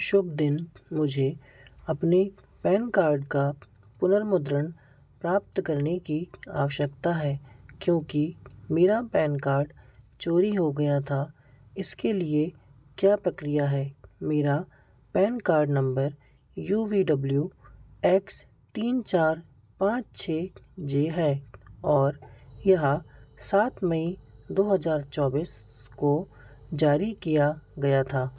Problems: background sounds at intervals